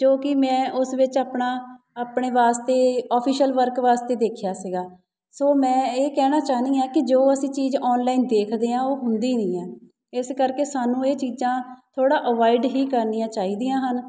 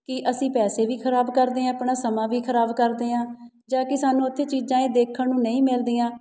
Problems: none marked